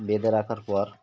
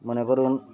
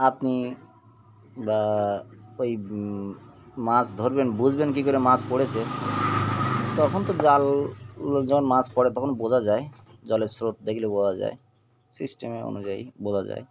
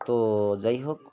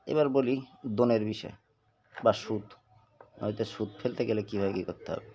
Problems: constant background noise, background conversations at intervals